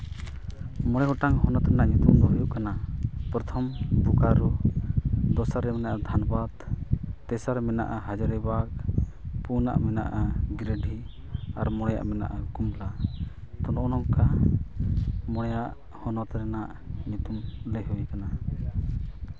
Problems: constant background noise